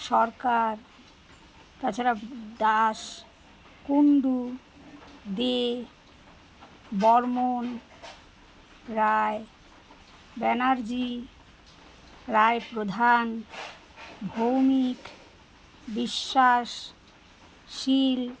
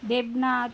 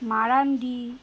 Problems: constant background noise